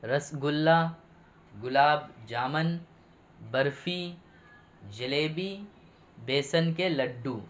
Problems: none marked